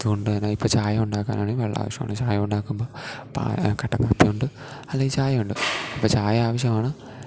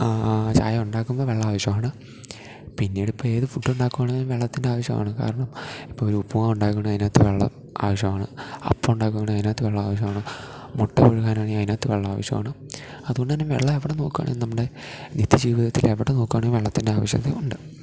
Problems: none marked